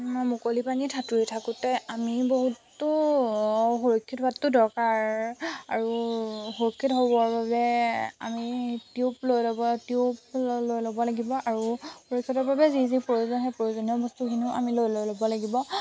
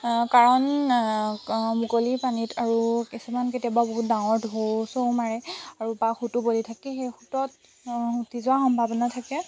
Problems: constant background noise